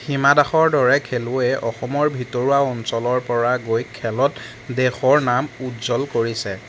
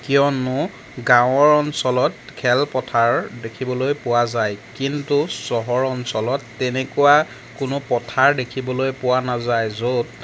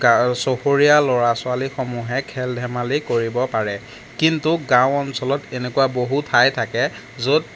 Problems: constant background noise